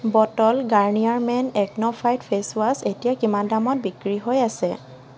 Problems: constant background noise